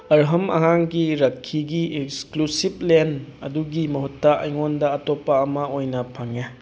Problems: background sounds at intervals